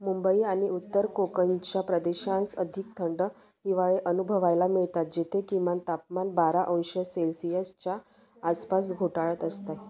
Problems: constant background noise, background conversations at intervals